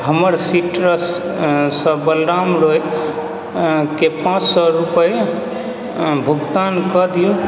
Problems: constant background noise